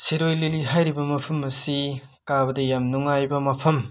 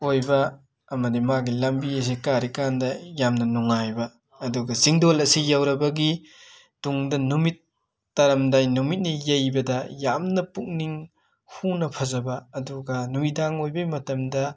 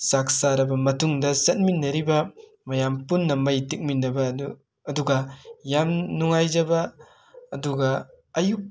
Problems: constant background noise